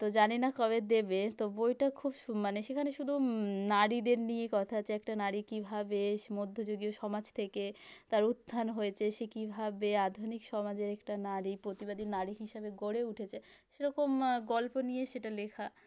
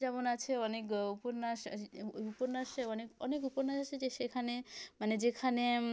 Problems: none marked